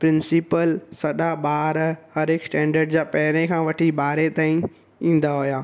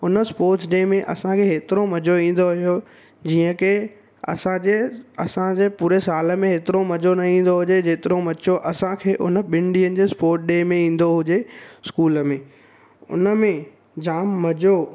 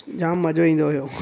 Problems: constant background noise, background conversations at intervals